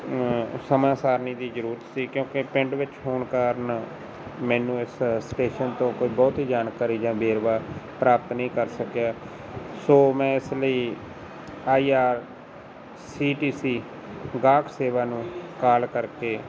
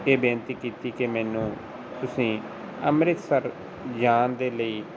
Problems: constant background noise